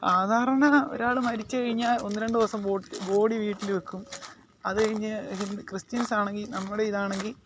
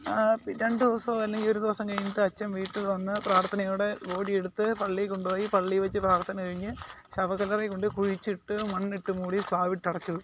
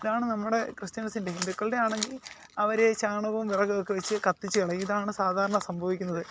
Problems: constant background noise